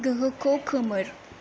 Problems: low volume